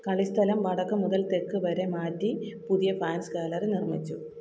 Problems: constant background noise, low volume